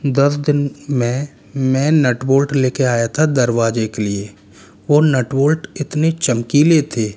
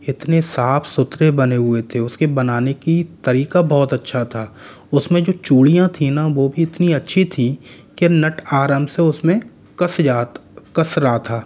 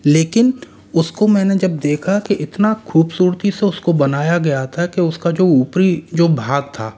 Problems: constant background noise